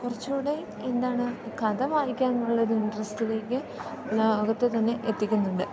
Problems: background sounds at intervals